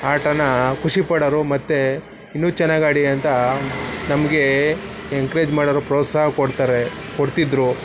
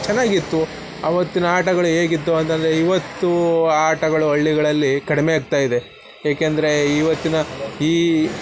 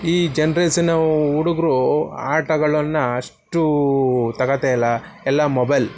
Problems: constant background noise